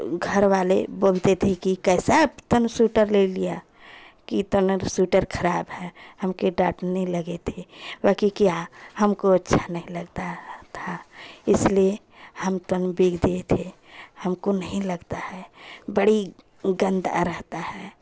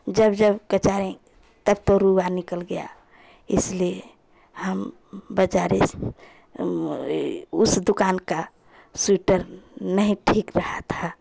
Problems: constant background noise, continuous background conversations